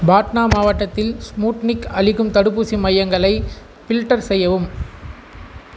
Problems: constant background noise